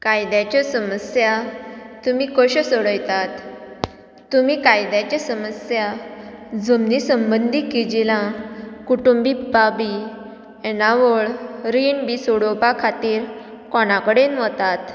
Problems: background sounds at intervals